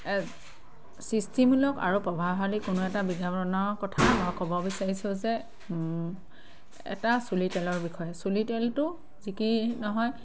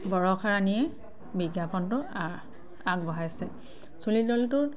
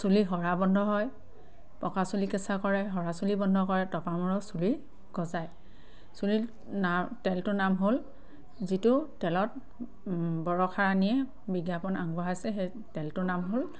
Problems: constant background noise, background conversations at intervals